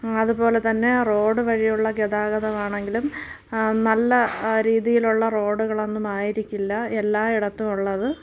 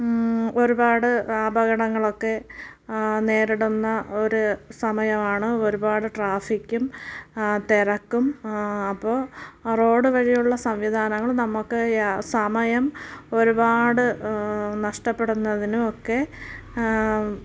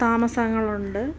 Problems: none marked